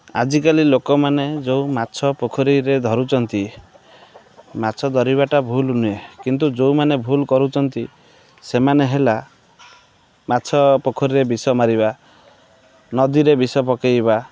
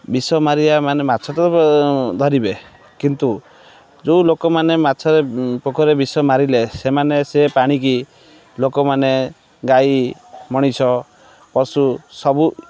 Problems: background sounds at intervals, background conversations at intervals